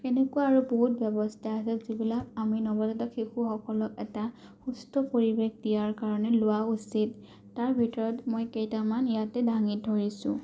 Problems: none marked